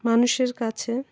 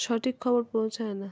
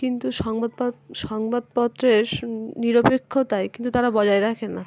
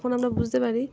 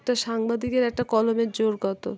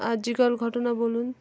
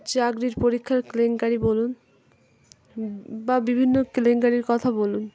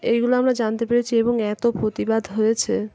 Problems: constant background noise, continuous background conversations